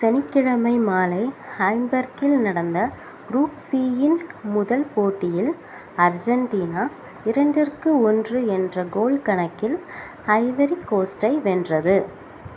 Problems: constant background noise